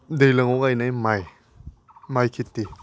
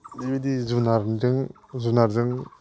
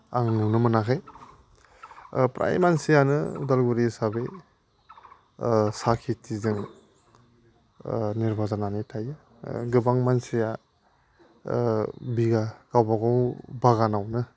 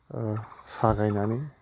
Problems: constant background noise